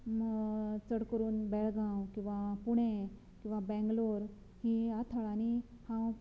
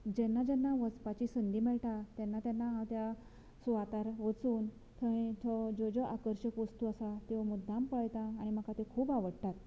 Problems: none marked